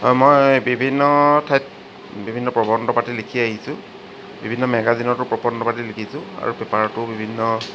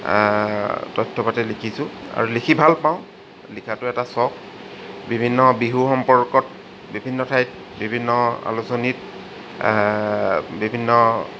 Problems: constant background noise